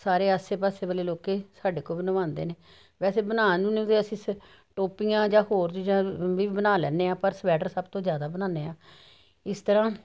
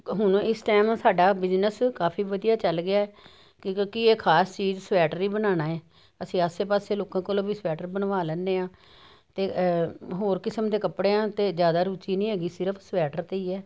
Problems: none marked